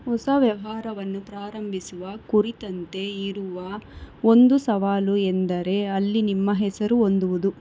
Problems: none marked